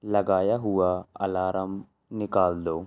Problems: low volume